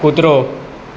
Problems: none marked